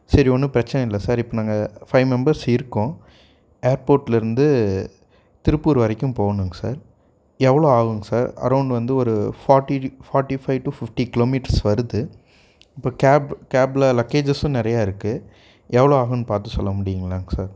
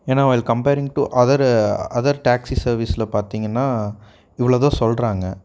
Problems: none marked